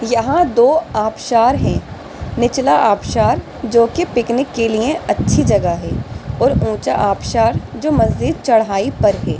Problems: constant background noise